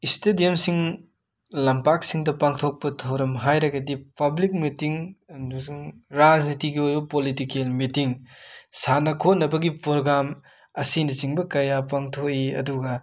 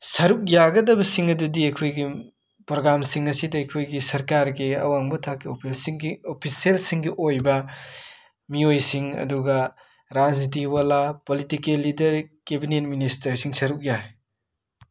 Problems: none marked